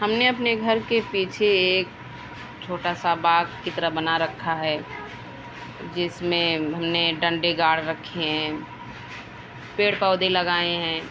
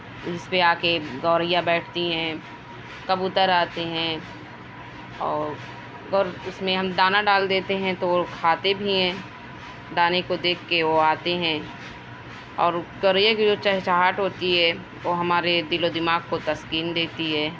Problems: constant background noise